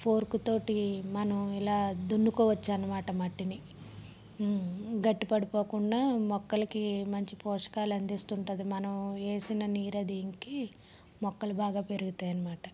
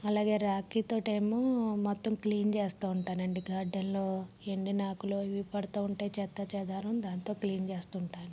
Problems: low volume